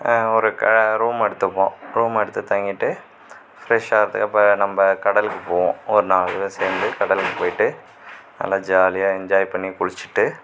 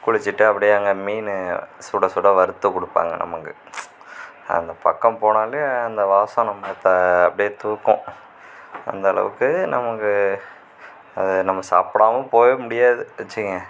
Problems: none marked